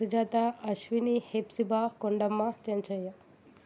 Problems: constant background noise